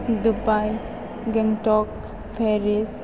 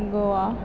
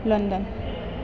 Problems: constant background noise